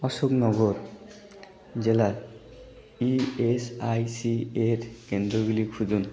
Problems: constant background noise, continuous background conversations